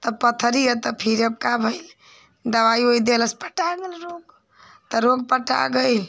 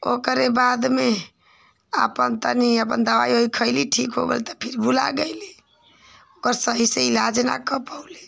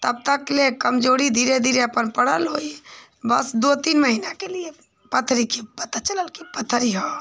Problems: none marked